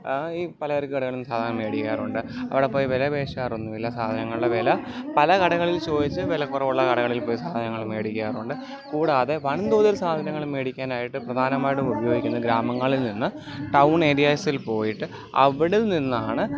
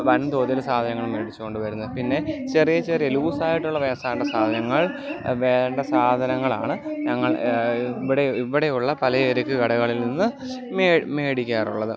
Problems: continuous background conversations